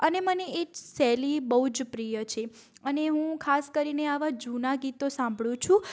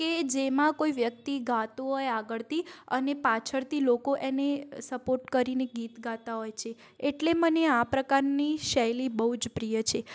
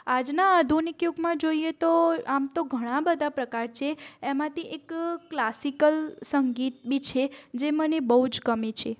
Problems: background sounds at intervals